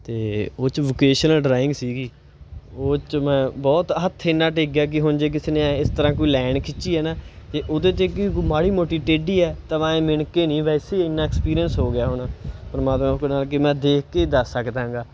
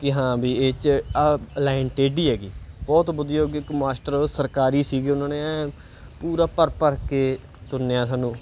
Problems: none marked